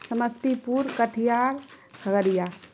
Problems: constant background noise